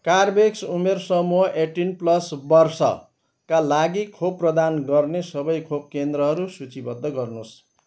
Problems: none marked